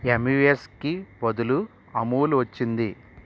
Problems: constant background noise